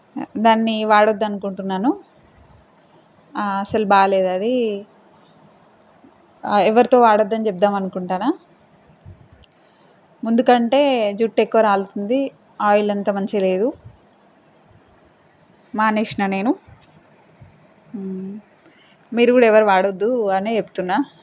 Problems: constant background noise